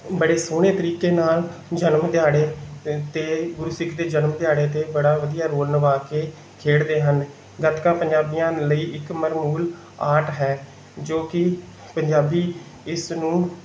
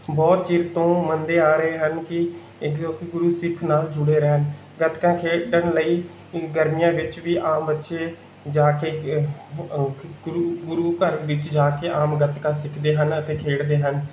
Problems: none marked